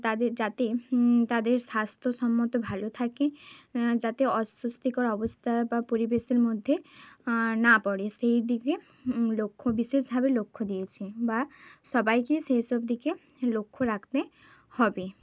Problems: constant background noise